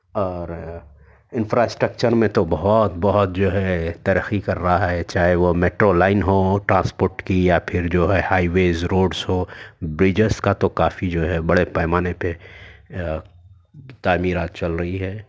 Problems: none marked